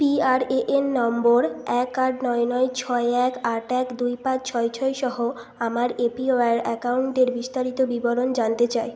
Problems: constant background noise